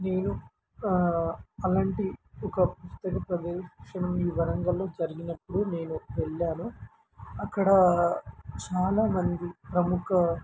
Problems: constant background noise